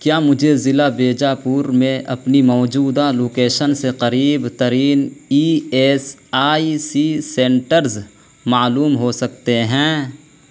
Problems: constant background noise